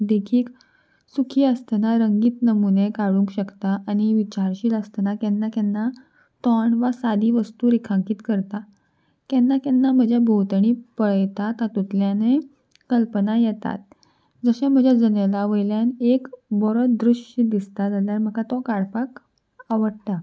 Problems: constant background noise